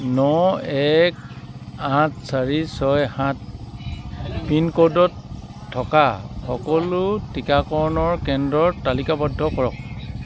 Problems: background sounds at intervals, background conversations at intervals